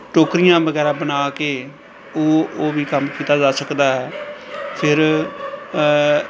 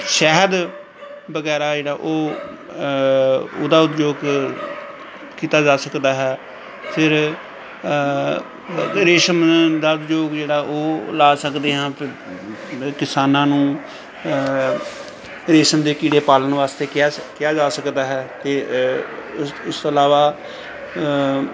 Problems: background sounds at intervals, background conversations at intervals